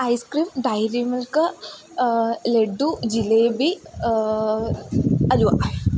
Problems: none marked